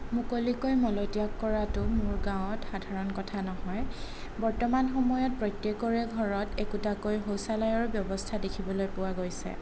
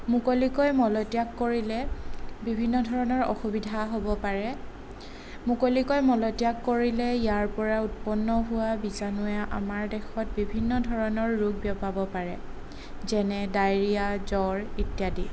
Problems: none marked